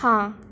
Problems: none marked